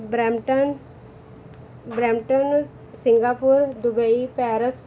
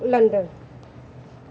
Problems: none marked